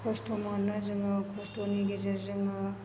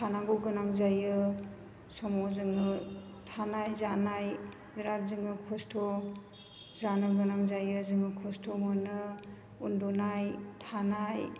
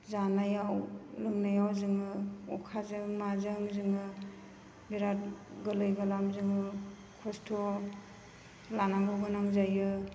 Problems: constant background noise